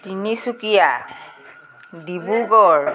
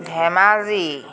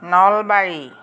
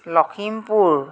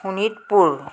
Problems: background conversations at intervals